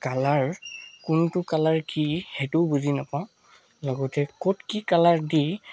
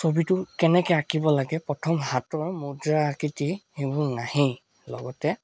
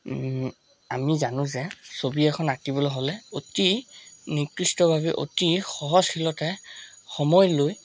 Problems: constant background noise